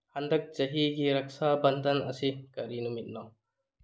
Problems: low volume